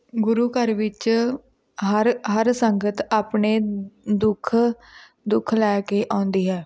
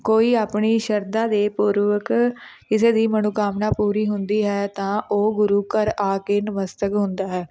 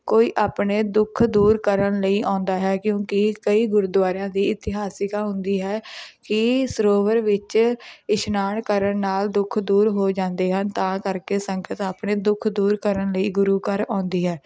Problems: constant background noise